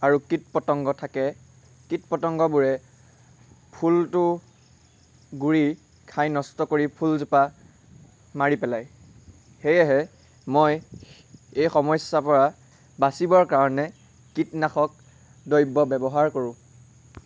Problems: none marked